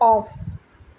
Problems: constant background noise